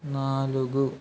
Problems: background sounds at intervals